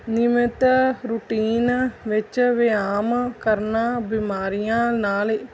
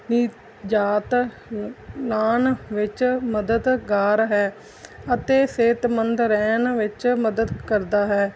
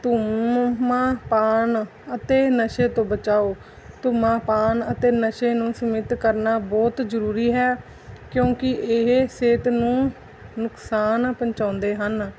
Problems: background sounds at intervals